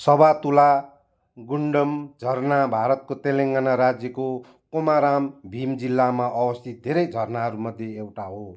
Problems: background sounds at intervals